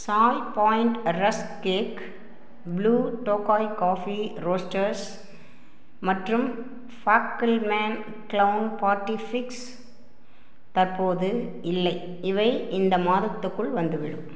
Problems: none marked